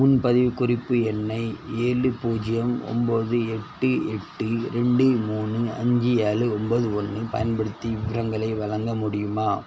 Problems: none marked